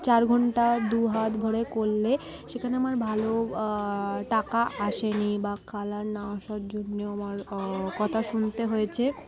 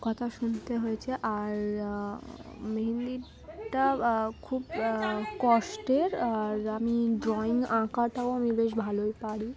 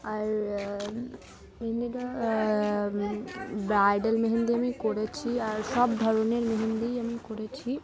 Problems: constant background noise, continuous background conversations